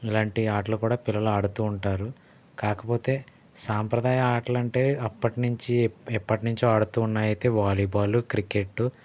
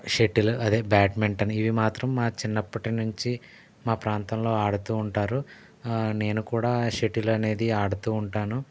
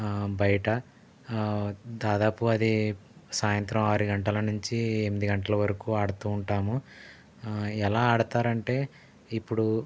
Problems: none marked